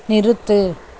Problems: constant background noise